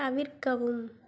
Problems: low volume